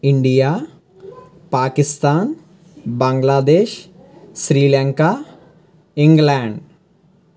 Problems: constant background noise, background conversations at intervals